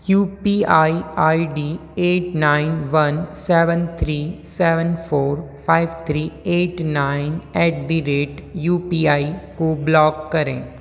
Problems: constant background noise